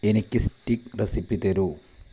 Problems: low volume